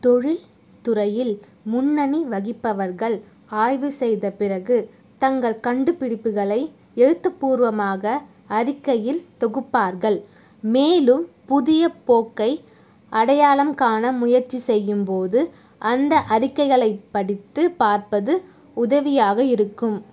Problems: none marked